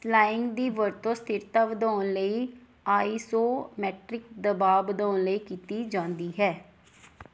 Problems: background sounds at intervals